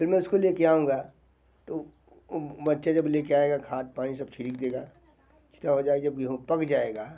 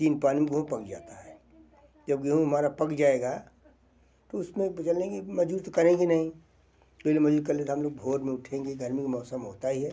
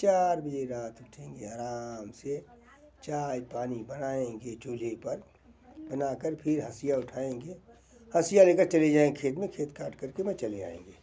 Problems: none marked